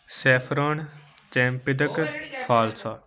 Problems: background conversations at intervals